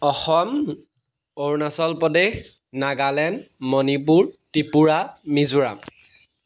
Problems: none marked